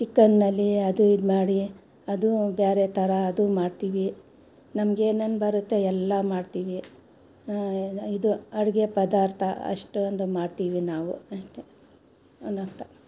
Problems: background sounds at intervals